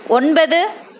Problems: constant background noise